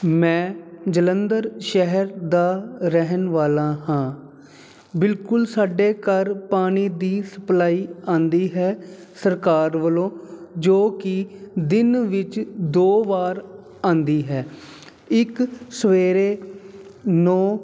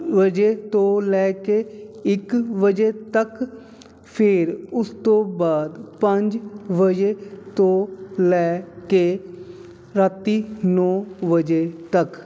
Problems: constant background noise